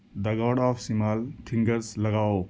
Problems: constant background noise